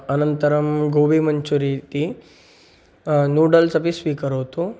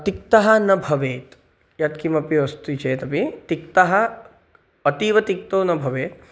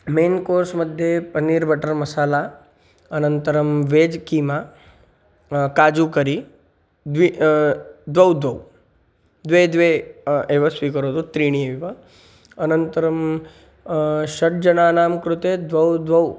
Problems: none marked